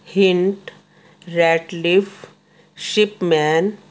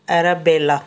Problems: constant background noise